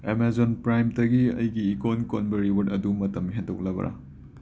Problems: background sounds at intervals